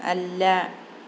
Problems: none marked